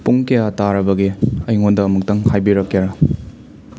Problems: constant background noise